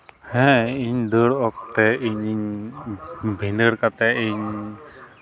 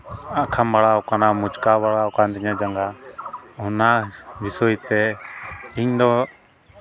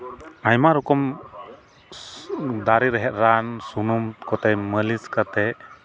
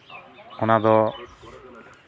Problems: constant background noise, background conversations at intervals